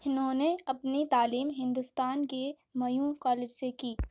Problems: none marked